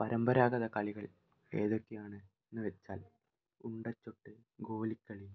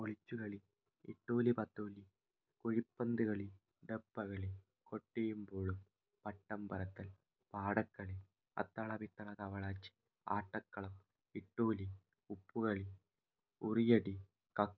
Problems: low volume